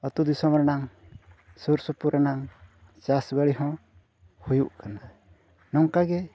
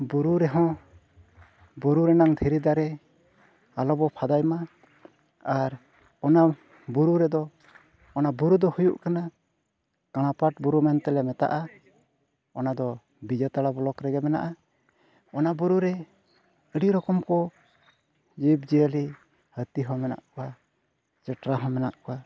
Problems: background sounds at intervals, low volume